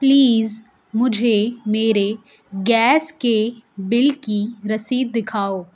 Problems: none marked